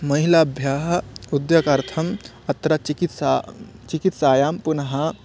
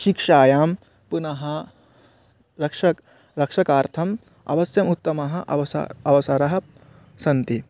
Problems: none marked